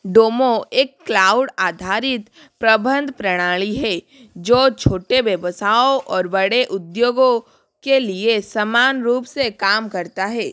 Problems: background sounds at intervals